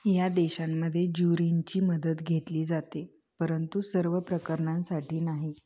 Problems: constant background noise, continuous background conversations